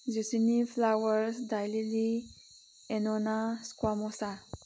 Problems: none marked